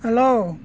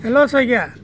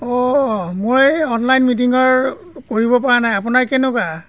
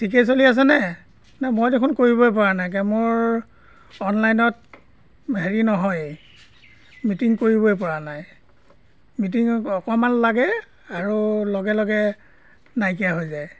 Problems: constant background noise